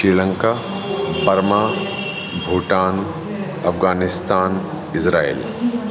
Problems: constant background noise, echo